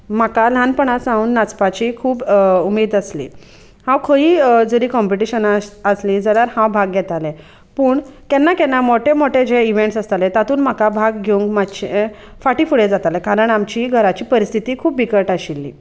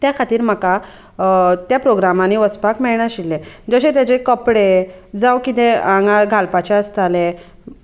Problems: constant background noise, background conversations at intervals